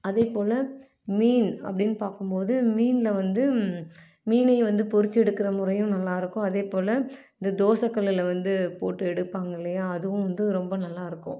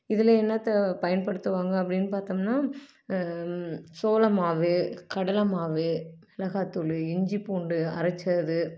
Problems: none marked